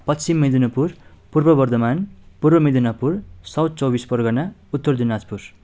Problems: none marked